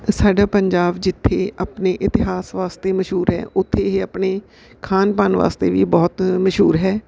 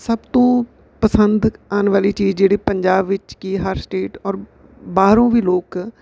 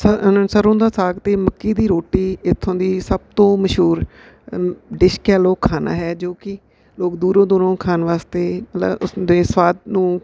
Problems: background sounds at intervals